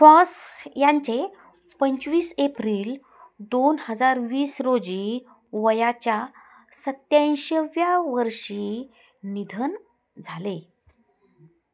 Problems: constant background noise, continuous background conversations